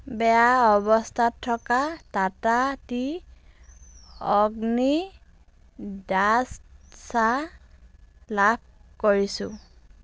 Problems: none marked